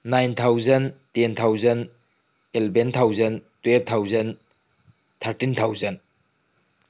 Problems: background sounds at intervals